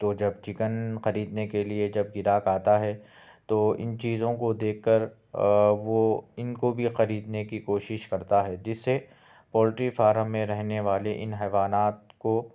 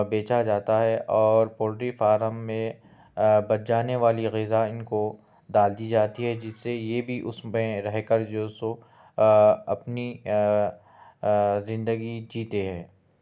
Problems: none marked